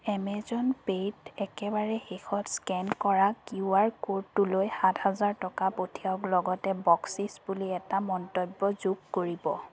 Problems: none marked